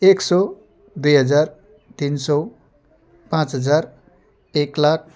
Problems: constant background noise